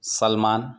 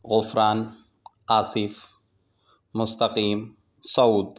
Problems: none marked